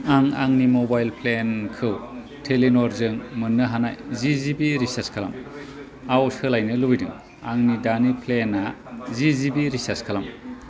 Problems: constant background noise